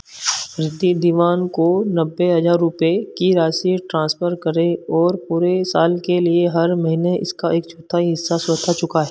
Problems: constant background noise